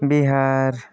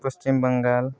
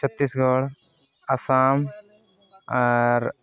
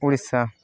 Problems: background conversations at intervals